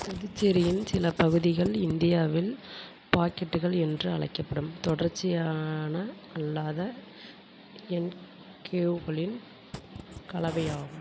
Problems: constant background noise